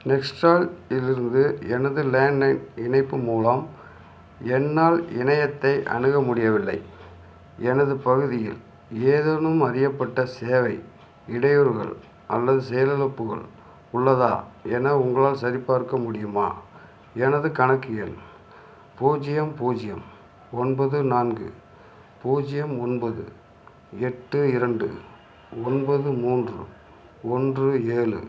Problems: none marked